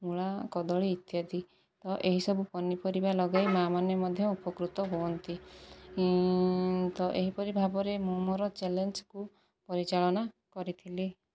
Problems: background sounds at intervals, low volume